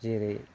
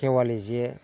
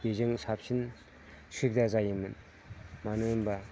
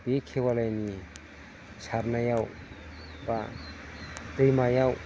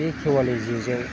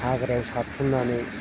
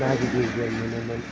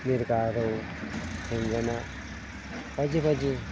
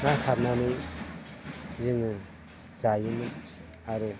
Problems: constant background noise